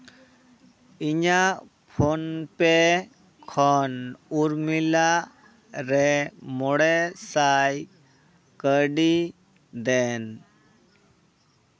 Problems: background conversations at intervals